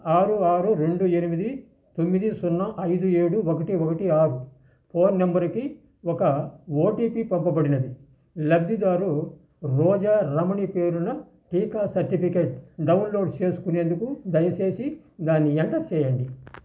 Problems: constant background noise